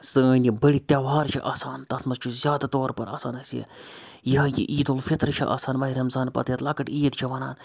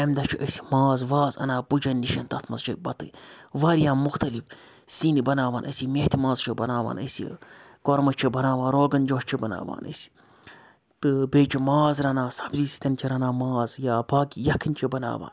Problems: none marked